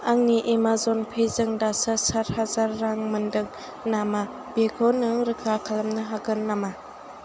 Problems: constant background noise